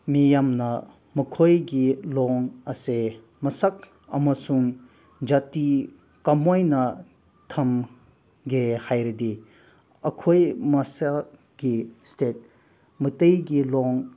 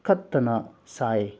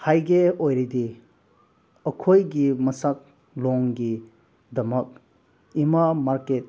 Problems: background sounds at intervals